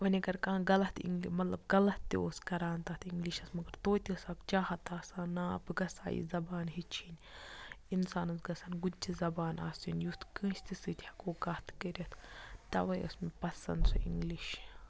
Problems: low volume